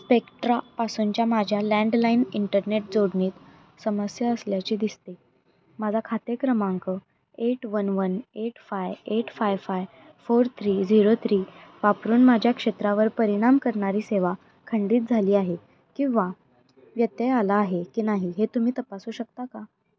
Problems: background sounds at intervals